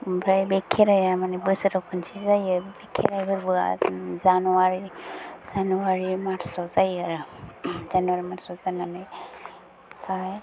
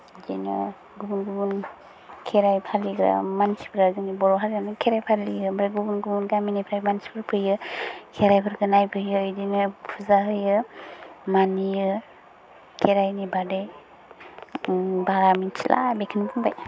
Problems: low volume